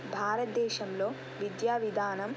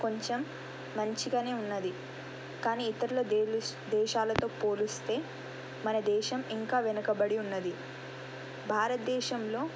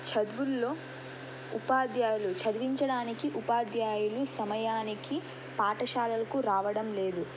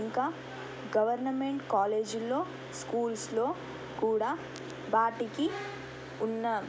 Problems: constant background noise